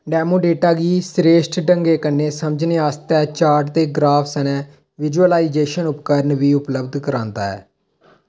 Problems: none marked